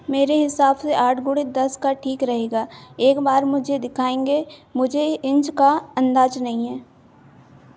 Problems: constant background noise